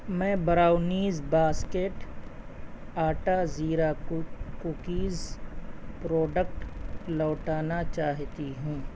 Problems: constant background noise, low volume